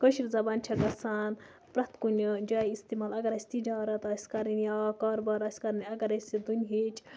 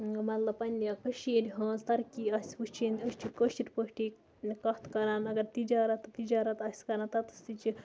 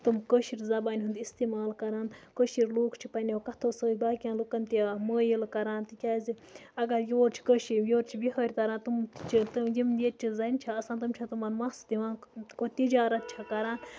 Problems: background sounds at intervals, background conversations at intervals, low volume